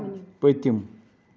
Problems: background sounds at intervals